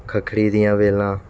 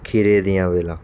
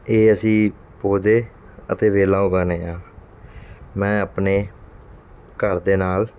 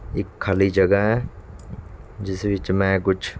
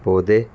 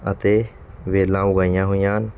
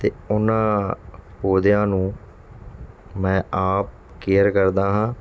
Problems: background sounds at intervals